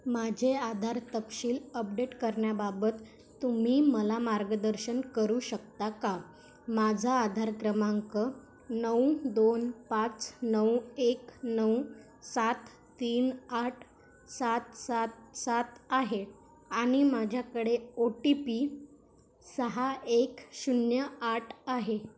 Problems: none marked